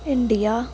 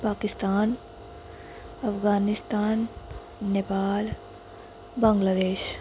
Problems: constant background noise